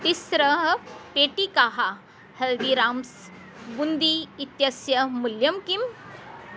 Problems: constant background noise